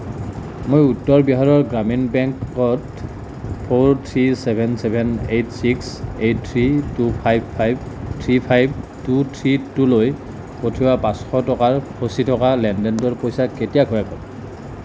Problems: constant background noise